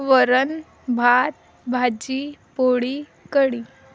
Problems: none marked